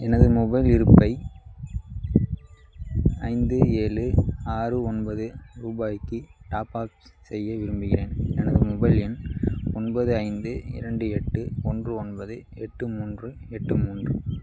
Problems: none marked